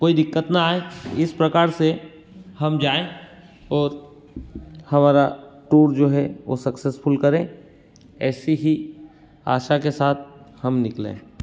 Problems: constant background noise